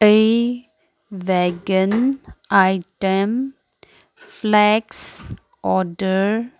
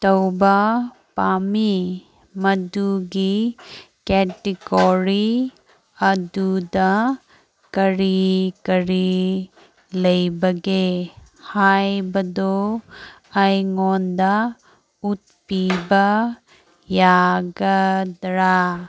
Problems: none marked